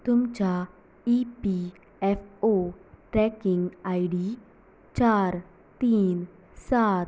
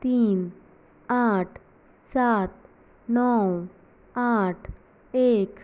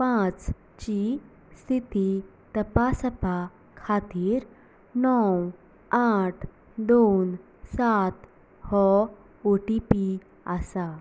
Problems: background sounds at intervals, low volume